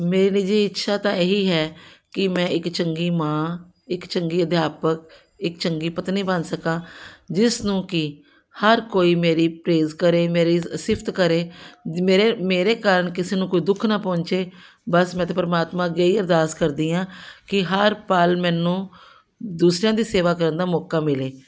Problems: background sounds at intervals